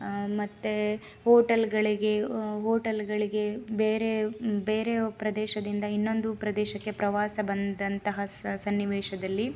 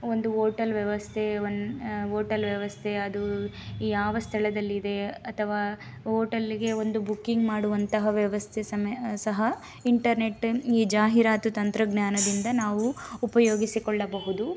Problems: background sounds at intervals